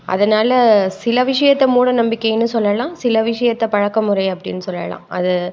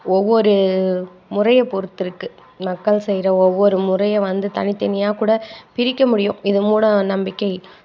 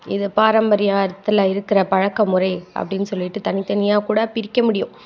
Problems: constant background noise